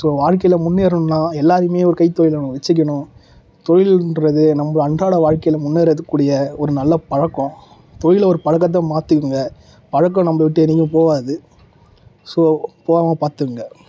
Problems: background sounds at intervals